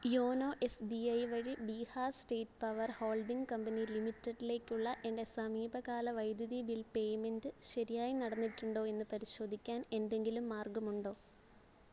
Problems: constant background noise